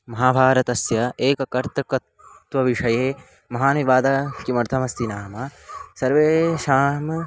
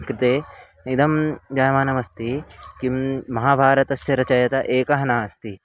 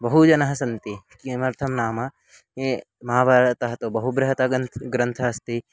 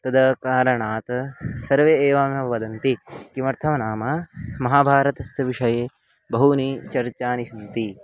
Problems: constant background noise